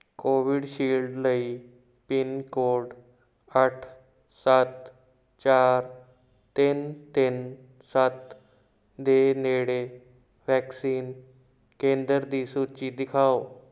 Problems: background sounds at intervals